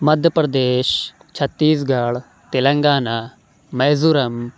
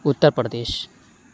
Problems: none marked